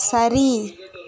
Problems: background conversations at intervals